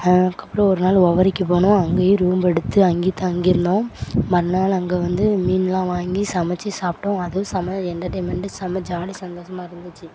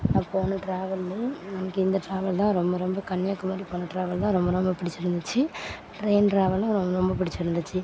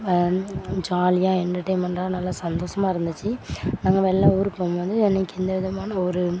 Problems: background sounds at intervals